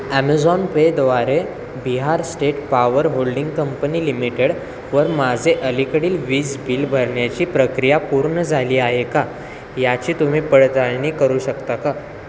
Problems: constant background noise, background conversations at intervals